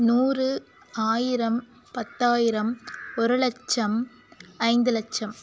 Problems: background sounds at intervals